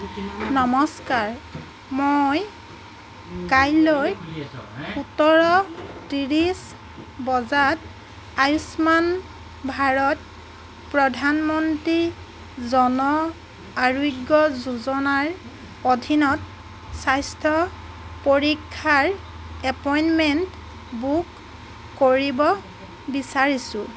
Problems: none marked